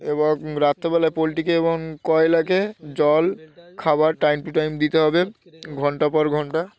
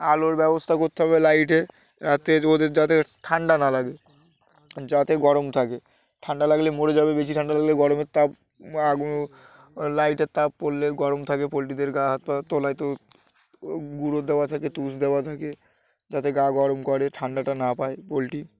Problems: none marked